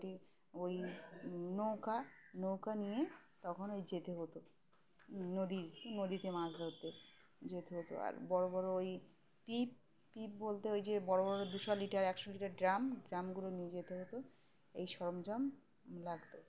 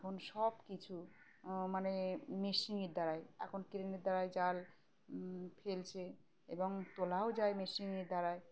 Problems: background sounds at intervals